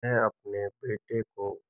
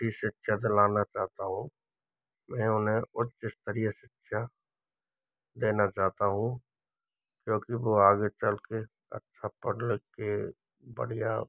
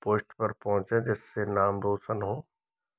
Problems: background sounds at intervals